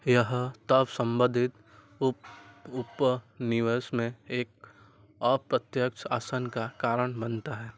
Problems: none marked